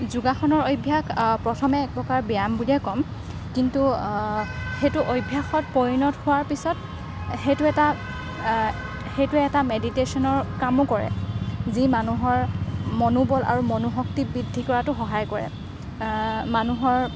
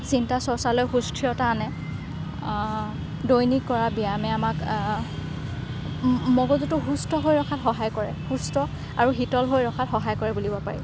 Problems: constant background noise, background conversations at intervals